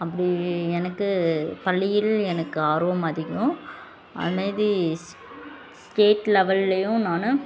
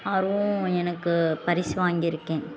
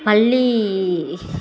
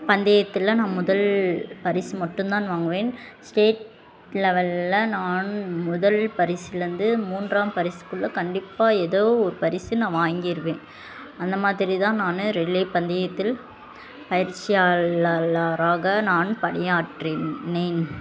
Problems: constant background noise, continuous background conversations